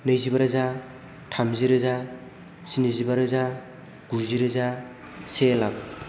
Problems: background sounds at intervals